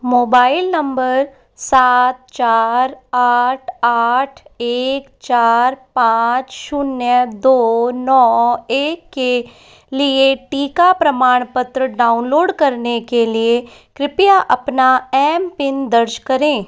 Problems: background sounds at intervals